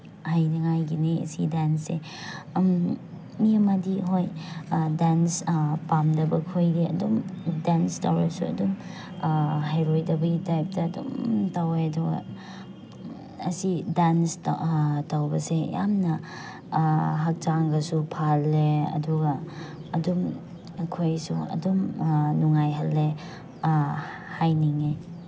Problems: background sounds at intervals